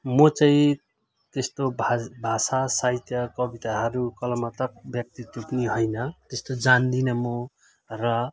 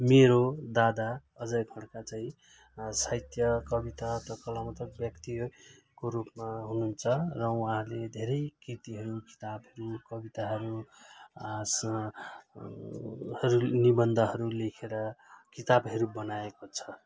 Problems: none marked